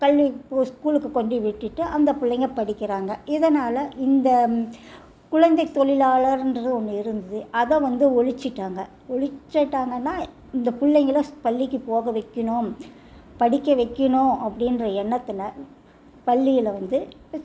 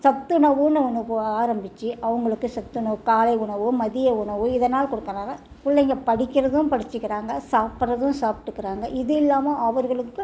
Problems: low volume